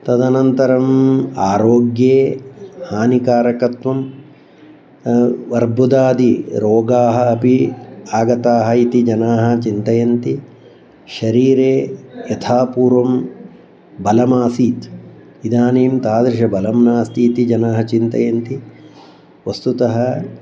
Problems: background sounds at intervals